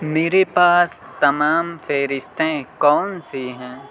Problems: constant background noise, continuous background conversations